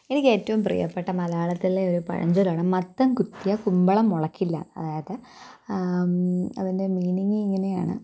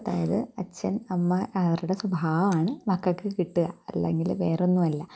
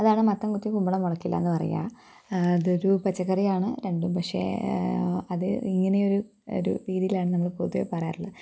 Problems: background sounds at intervals